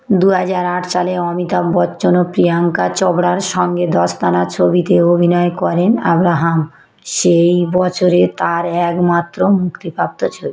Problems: echo